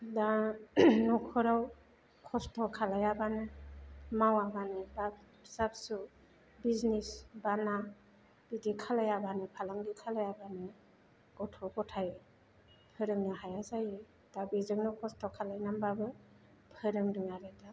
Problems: none marked